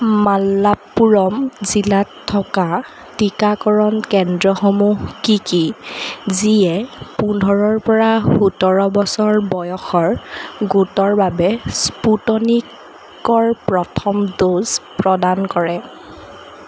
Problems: constant background noise